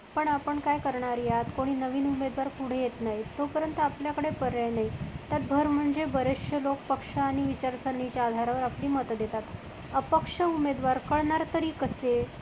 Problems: constant background noise